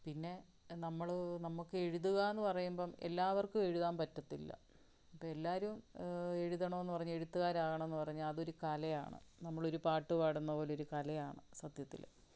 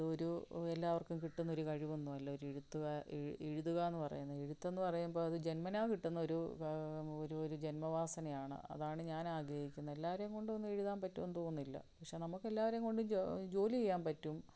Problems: low volume